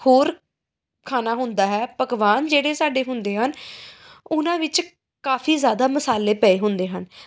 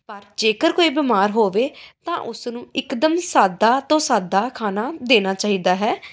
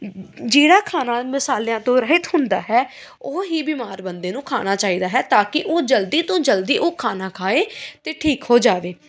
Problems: background sounds at intervals